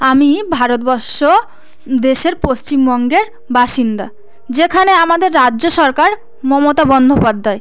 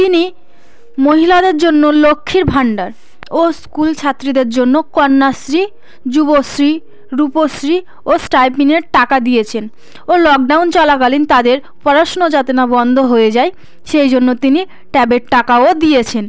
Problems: background sounds at intervals